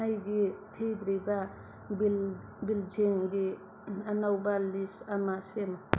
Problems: constant background noise